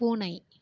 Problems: none marked